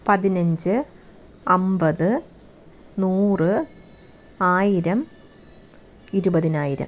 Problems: background sounds at intervals